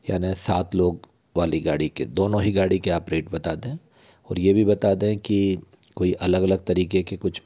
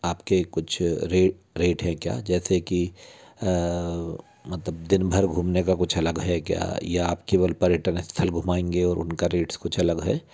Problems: constant background noise